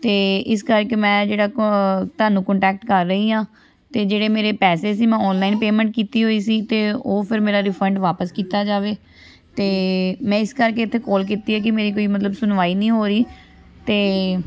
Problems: constant background noise, background conversations at intervals